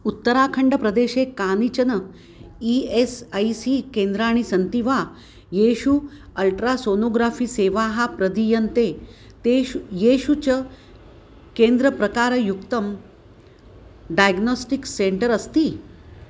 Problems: none marked